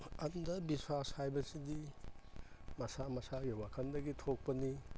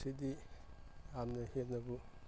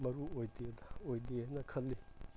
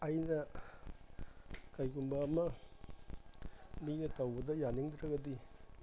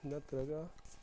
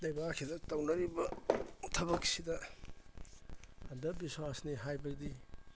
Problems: background sounds at intervals